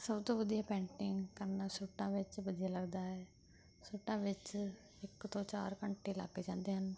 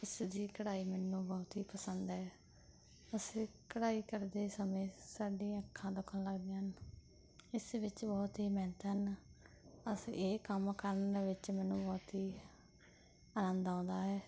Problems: background conversations at intervals